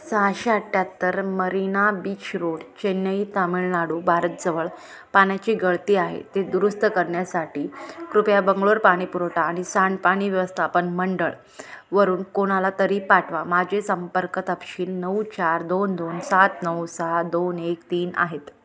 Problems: none marked